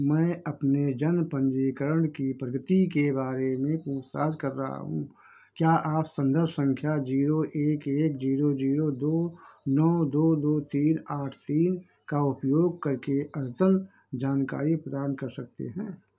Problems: background sounds at intervals